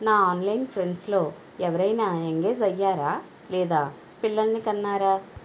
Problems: constant background noise